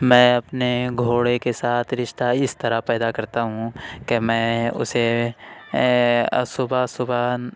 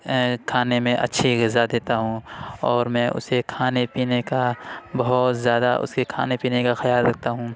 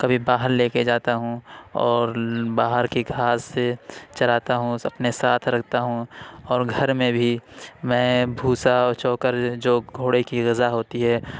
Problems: none marked